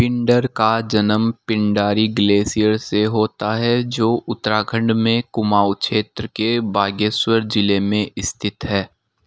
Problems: none marked